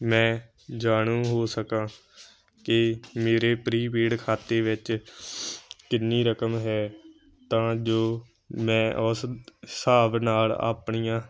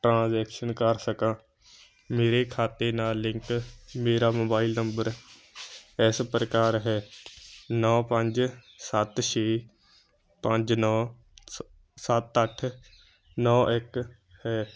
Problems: none marked